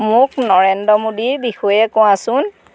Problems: background sounds at intervals